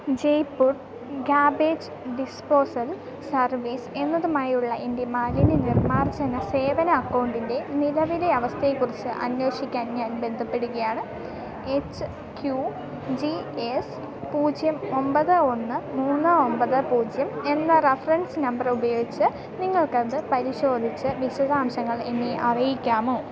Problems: continuous background conversations, low volume